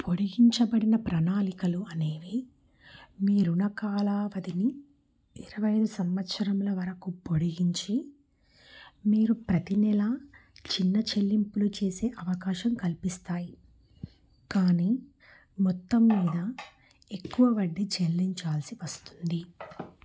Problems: background sounds at intervals